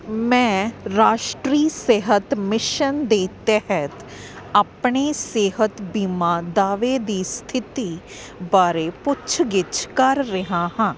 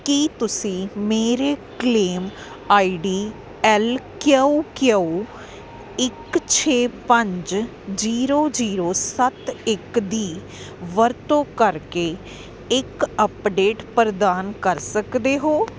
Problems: constant background noise